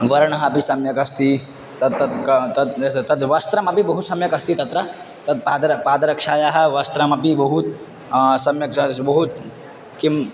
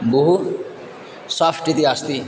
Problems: constant background noise